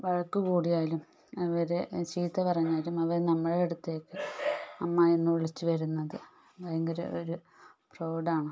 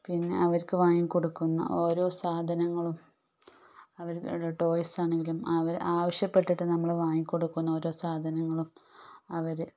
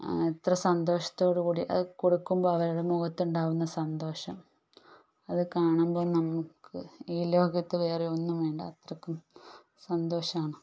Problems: low volume